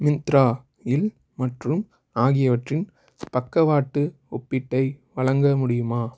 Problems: none marked